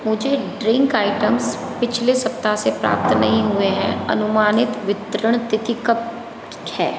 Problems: constant background noise